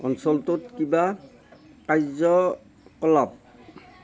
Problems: none marked